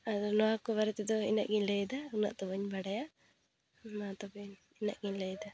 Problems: background sounds at intervals